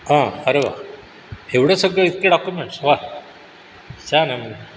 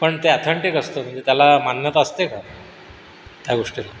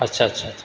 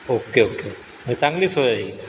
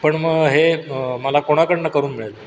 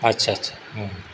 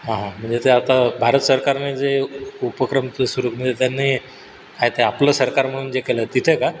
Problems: background sounds at intervals